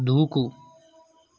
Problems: none marked